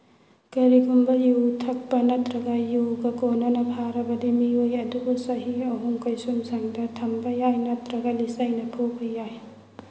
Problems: background sounds at intervals, low volume